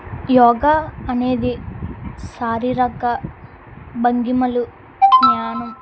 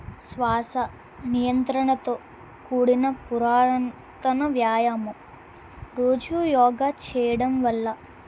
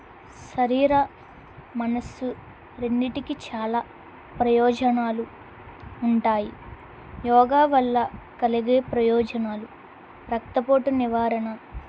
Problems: constant background noise